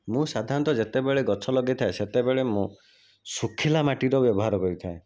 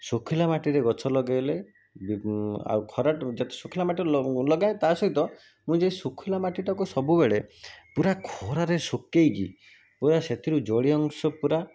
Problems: none marked